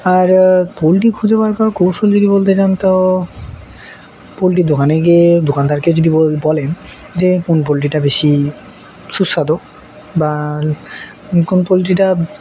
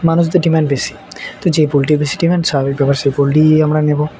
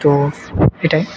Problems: none marked